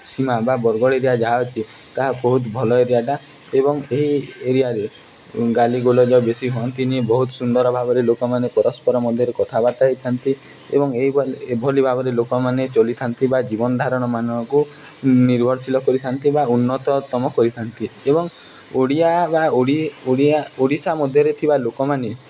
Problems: none marked